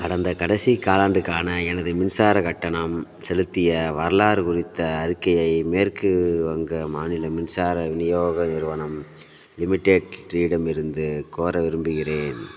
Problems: background sounds at intervals